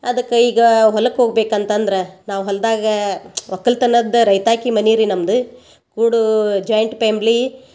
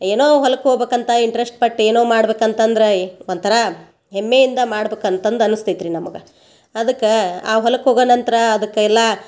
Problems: background conversations at intervals